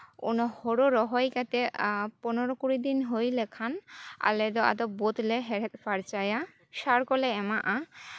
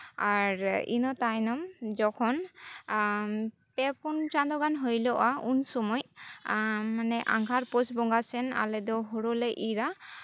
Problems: none marked